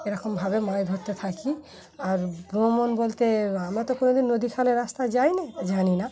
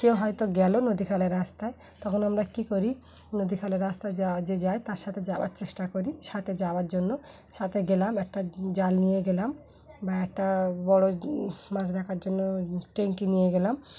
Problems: constant background noise, background conversations at intervals